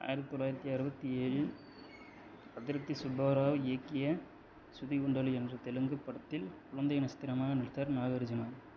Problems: low volume